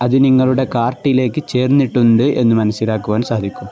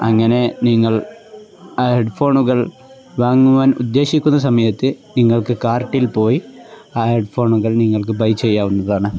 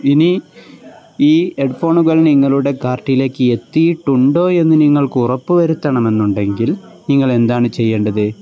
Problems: background sounds at intervals